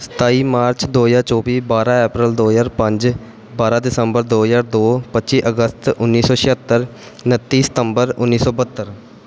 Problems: constant background noise